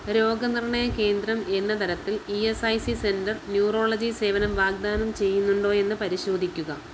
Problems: low volume